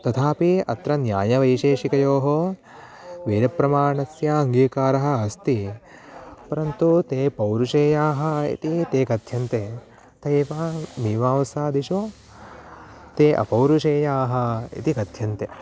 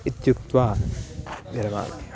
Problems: background sounds at intervals